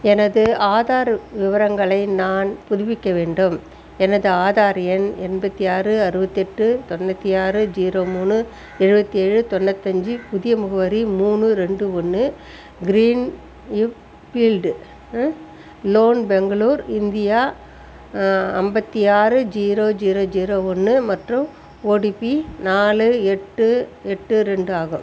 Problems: constant background noise